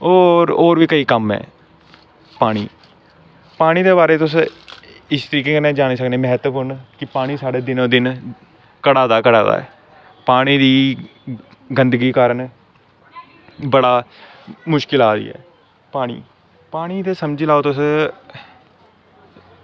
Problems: constant background noise